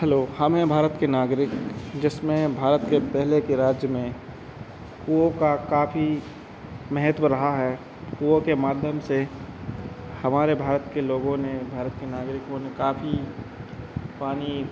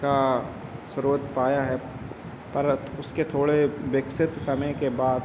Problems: constant background noise, background conversations at intervals